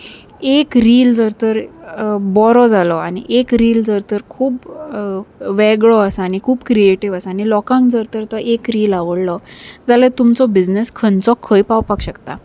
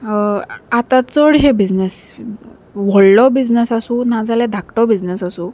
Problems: none marked